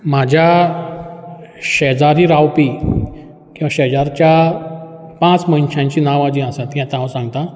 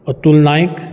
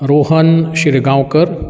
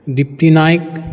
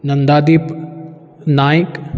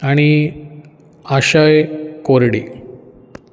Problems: background sounds at intervals